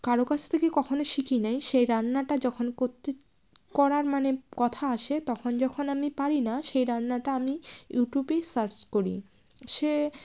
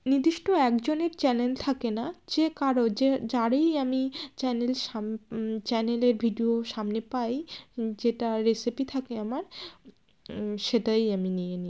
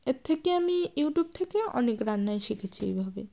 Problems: none marked